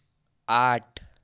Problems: none marked